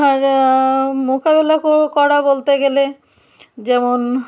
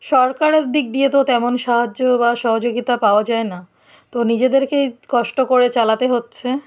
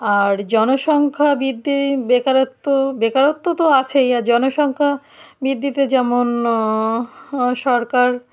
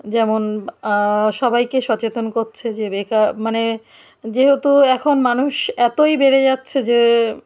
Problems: none marked